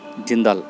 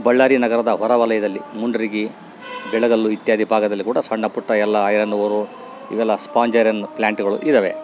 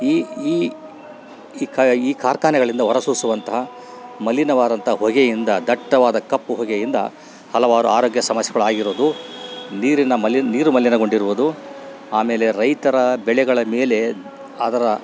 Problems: background sounds at intervals